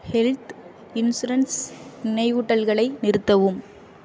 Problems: none marked